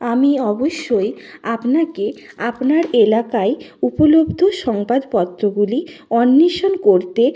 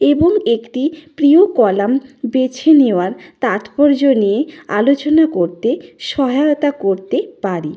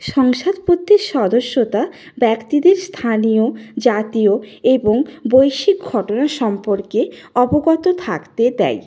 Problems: background conversations at intervals